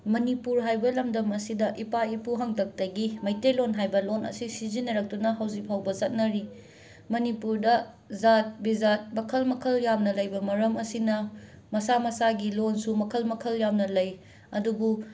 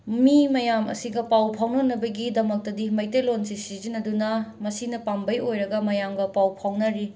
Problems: constant background noise